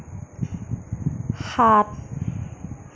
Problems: none marked